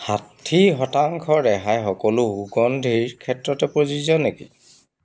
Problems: background sounds at intervals